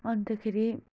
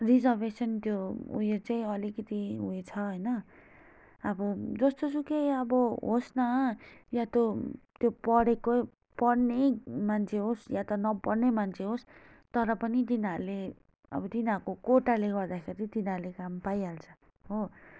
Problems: none marked